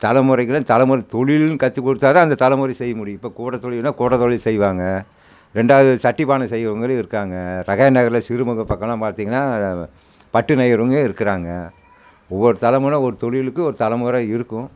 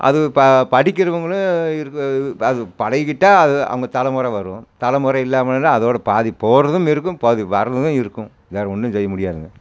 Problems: constant background noise